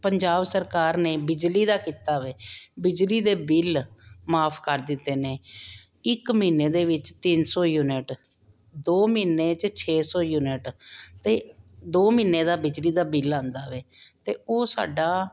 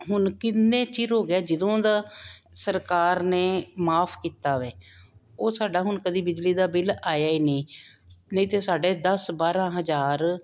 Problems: none marked